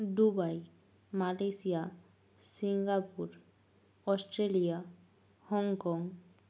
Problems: low volume